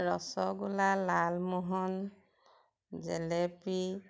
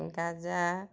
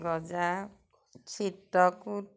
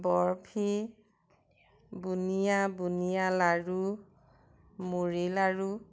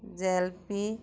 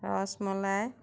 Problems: background conversations at intervals